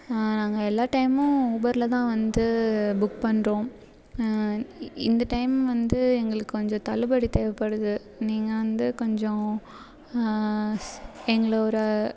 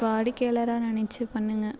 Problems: background sounds at intervals, background conversations at intervals